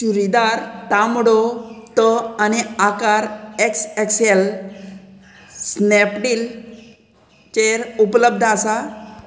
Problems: constant background noise